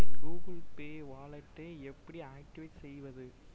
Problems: low volume